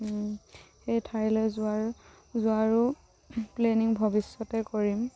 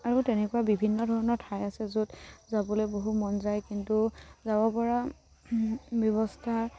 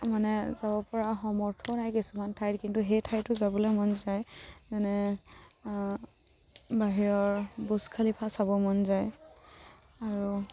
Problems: background sounds at intervals